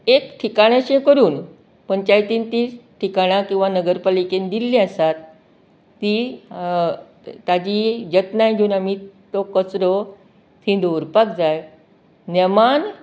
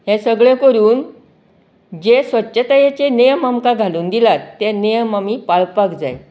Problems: background conversations at intervals